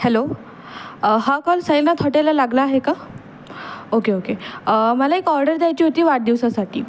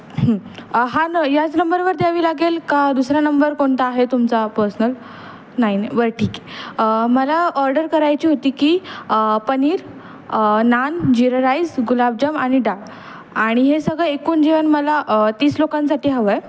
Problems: constant background noise, background conversations at intervals